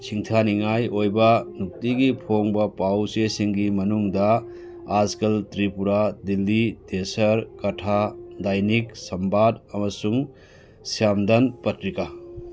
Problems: none marked